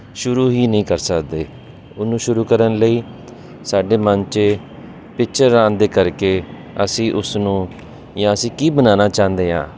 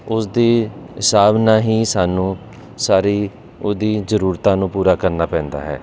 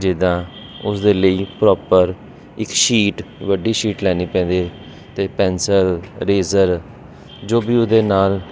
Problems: constant background noise